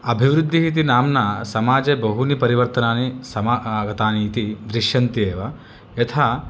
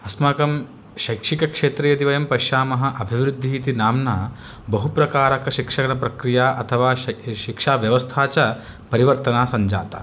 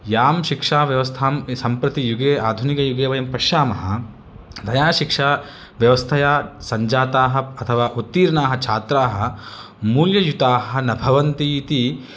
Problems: none marked